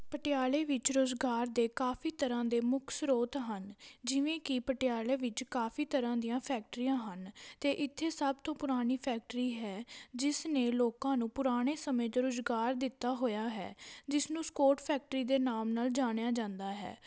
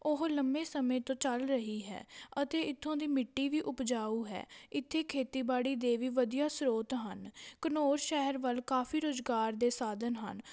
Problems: none marked